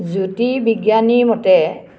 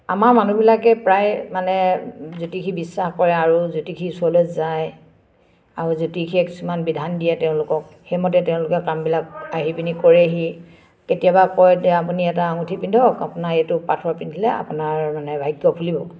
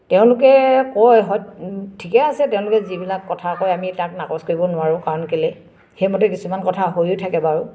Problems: none marked